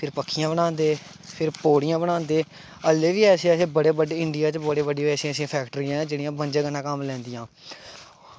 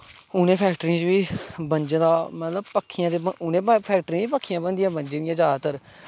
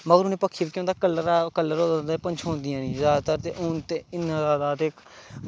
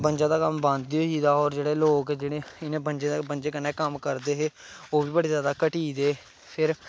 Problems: constant background noise